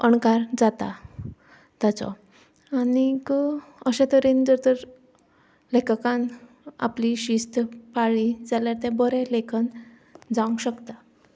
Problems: background sounds at intervals